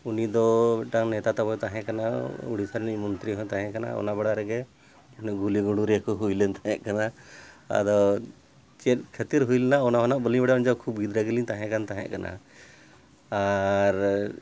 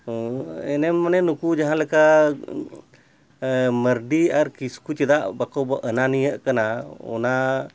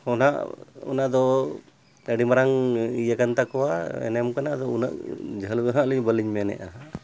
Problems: none marked